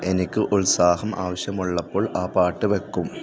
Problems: constant background noise